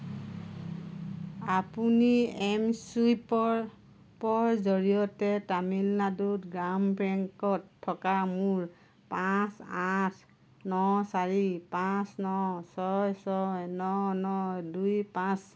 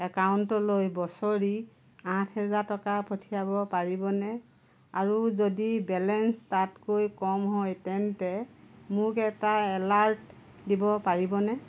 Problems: none marked